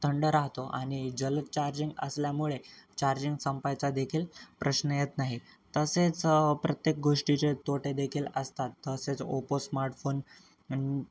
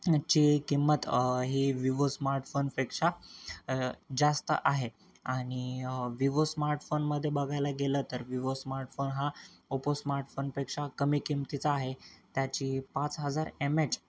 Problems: constant background noise